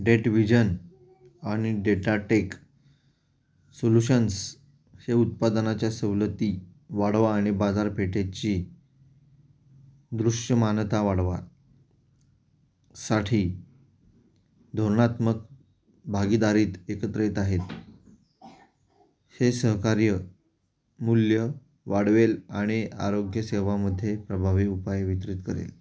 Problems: background sounds at intervals